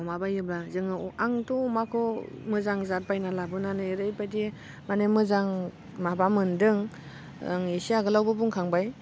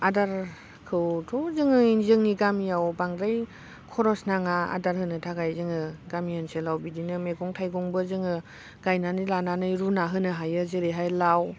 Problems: constant background noise